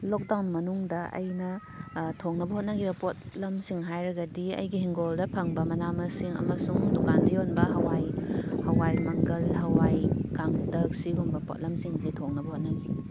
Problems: constant background noise